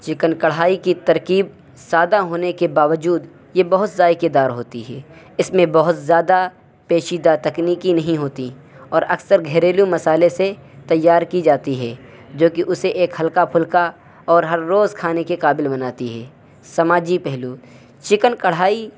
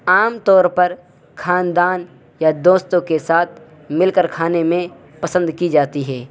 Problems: constant background noise